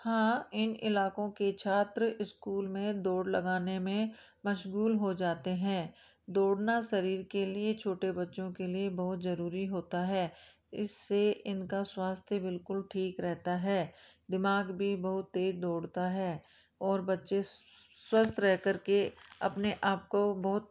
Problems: background sounds at intervals